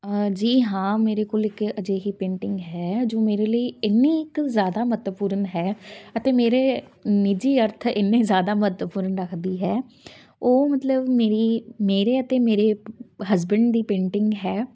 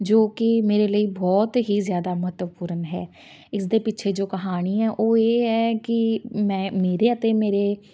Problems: background sounds at intervals